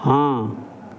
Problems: constant background noise